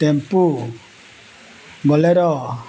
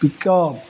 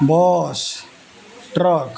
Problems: background sounds at intervals, background conversations at intervals